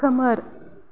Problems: low volume